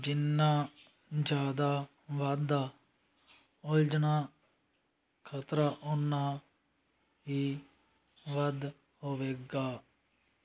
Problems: background sounds at intervals